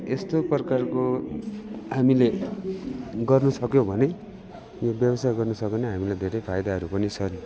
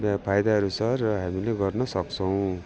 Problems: constant background noise, continuous background conversations